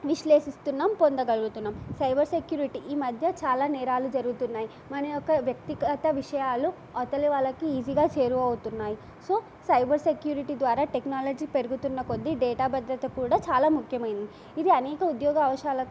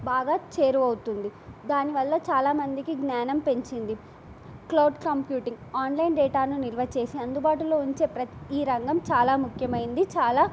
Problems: none marked